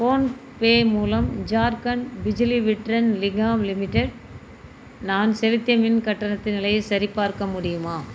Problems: constant background noise